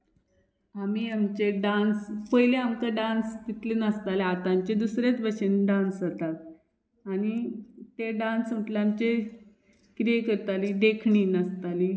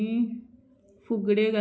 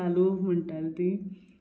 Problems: background sounds at intervals